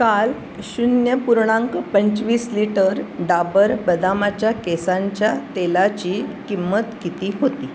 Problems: constant background noise